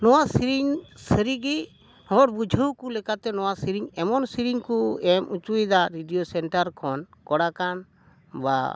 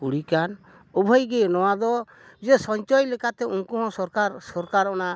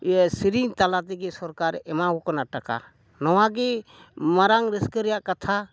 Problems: none marked